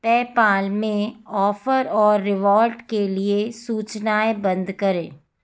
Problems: background sounds at intervals